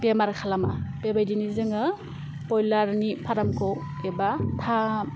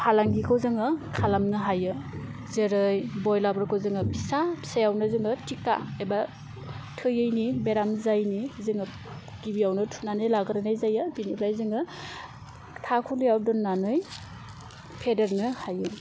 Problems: constant background noise